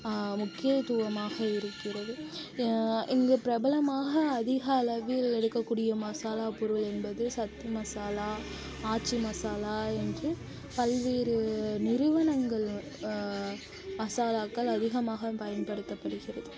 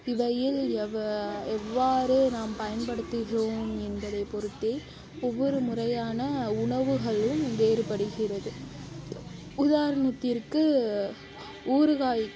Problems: constant background noise, background conversations at intervals, low volume